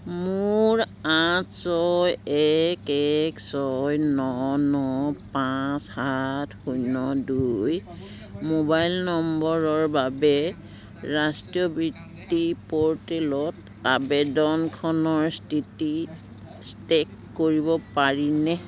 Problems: constant background noise, continuous background conversations